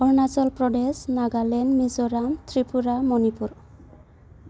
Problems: constant background noise